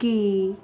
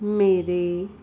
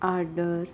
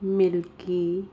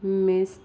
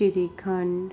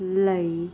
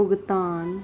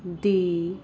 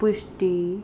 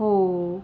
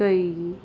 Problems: none marked